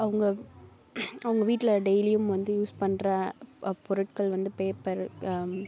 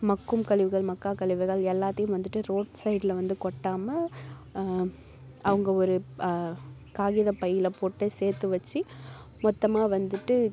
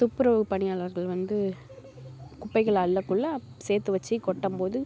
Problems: background sounds at intervals